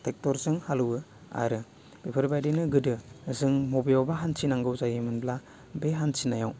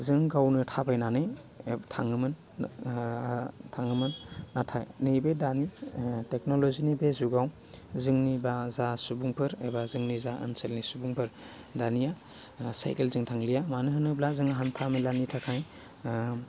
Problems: none marked